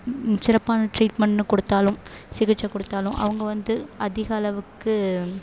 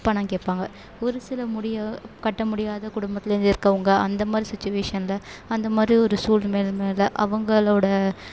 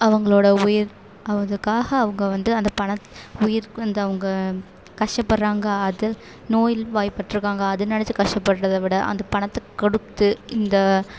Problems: none marked